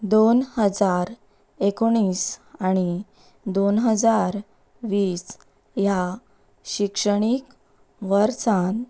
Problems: background sounds at intervals